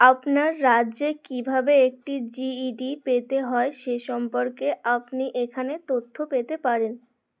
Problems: none marked